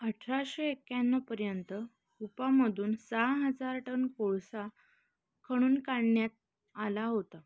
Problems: constant background noise